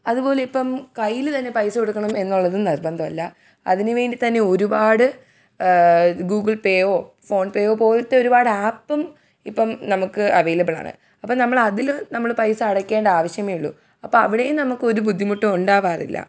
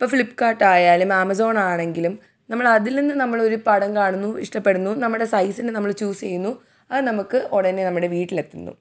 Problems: none marked